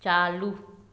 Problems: constant background noise, echo